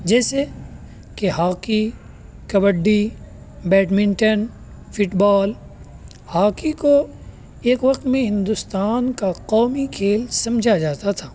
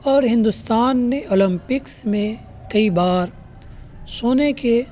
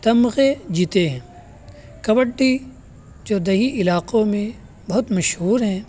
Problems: constant background noise